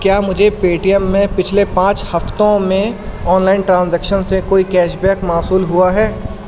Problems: constant background noise